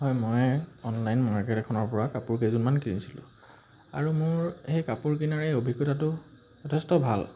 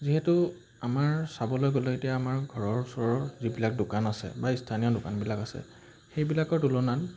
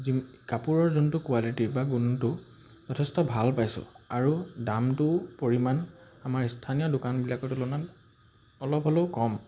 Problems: constant background noise